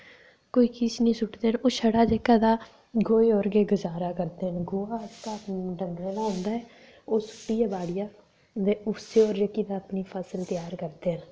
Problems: none marked